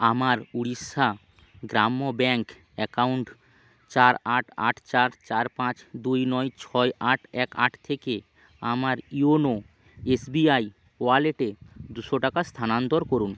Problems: none marked